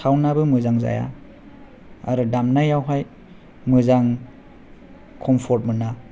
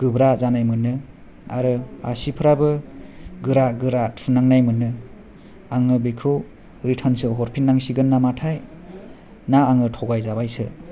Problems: none marked